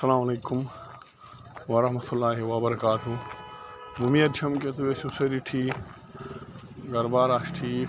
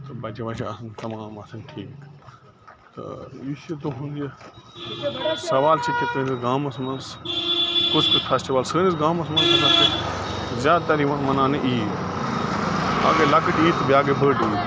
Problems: constant background noise